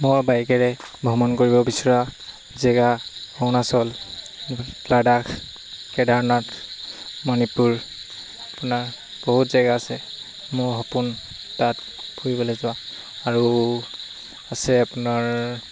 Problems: constant background noise